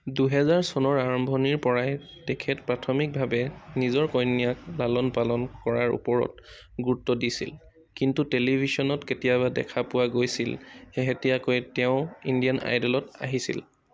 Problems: background sounds at intervals